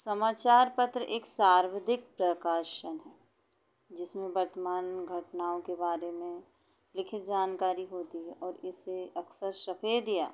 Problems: none marked